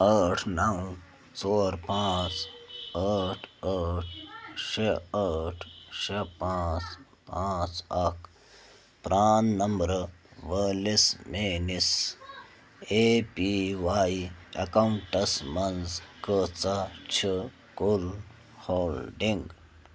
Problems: none marked